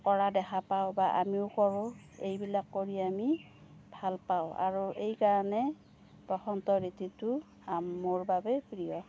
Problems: none marked